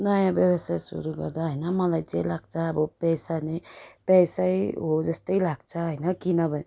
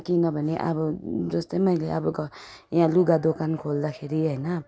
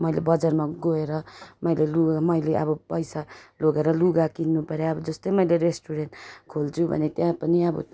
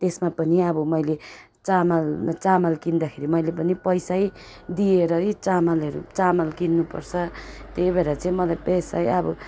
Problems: background sounds at intervals